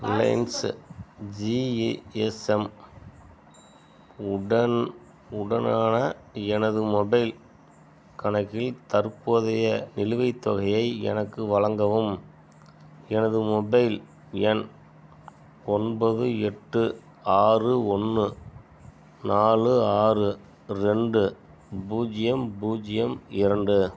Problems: background sounds at intervals, background conversations at intervals